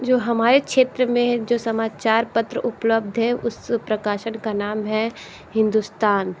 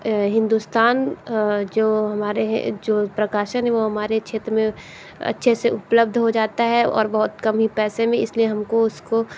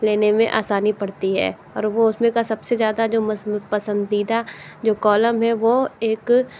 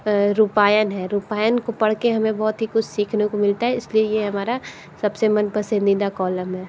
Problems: background sounds at intervals